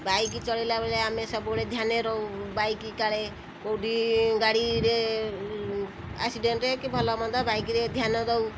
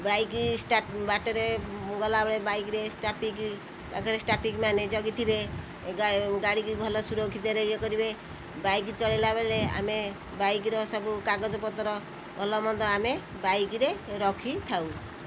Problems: constant background noise, background conversations at intervals